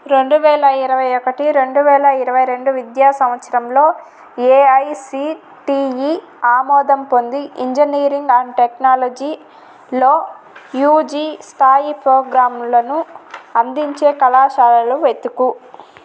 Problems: constant background noise